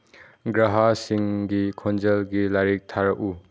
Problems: none marked